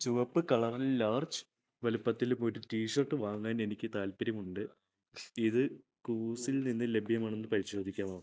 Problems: none marked